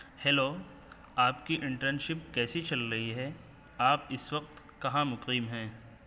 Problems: constant background noise